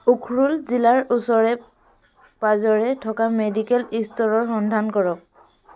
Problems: none marked